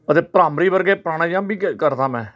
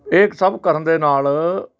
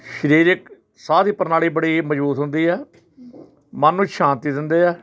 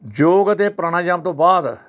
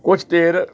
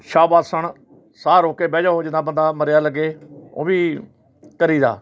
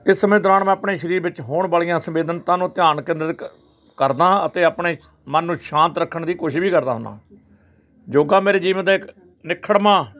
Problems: background sounds at intervals, background conversations at intervals